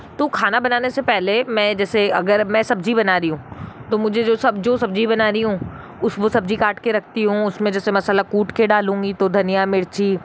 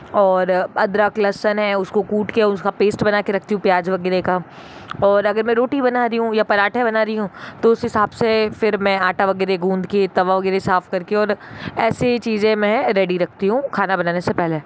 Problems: none marked